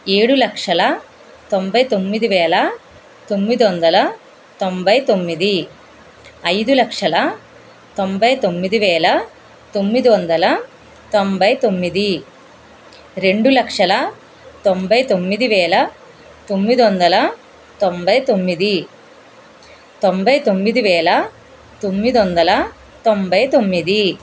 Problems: constant background noise